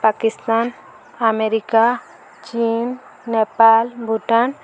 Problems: constant background noise